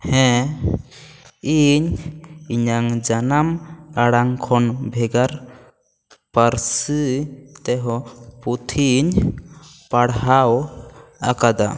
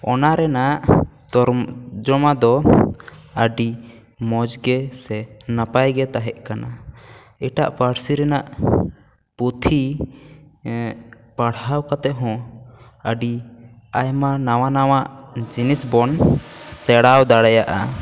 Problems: constant background noise